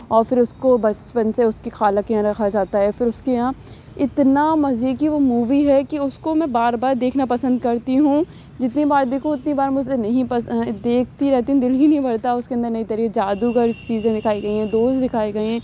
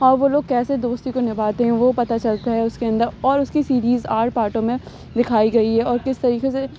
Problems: none marked